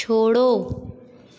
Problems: none marked